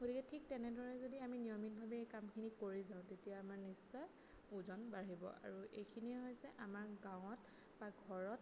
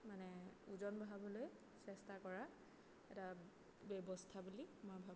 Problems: background sounds at intervals, low volume